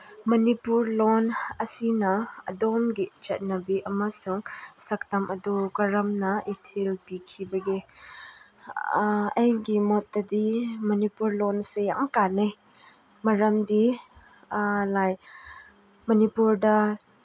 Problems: none marked